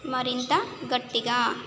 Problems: constant background noise